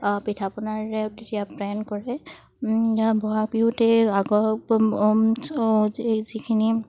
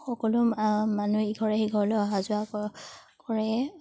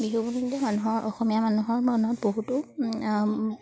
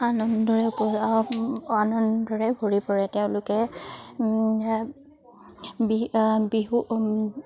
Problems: none marked